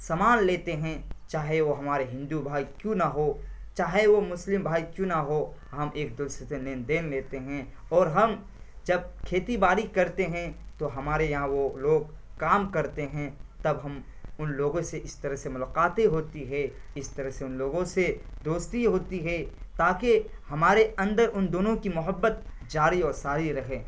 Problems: constant background noise